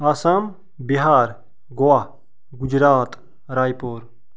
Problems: background sounds at intervals